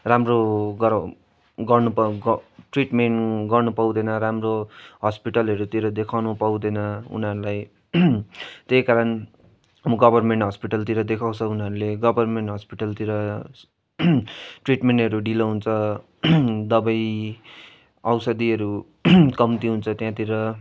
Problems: constant background noise